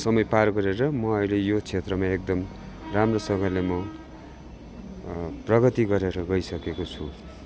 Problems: constant background noise